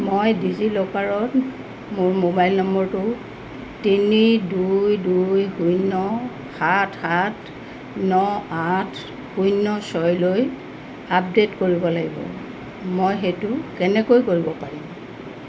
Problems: none marked